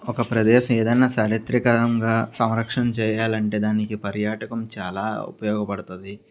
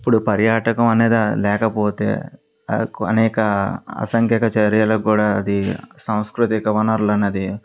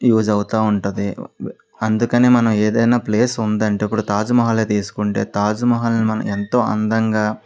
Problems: none marked